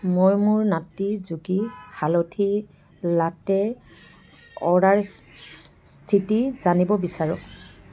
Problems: constant background noise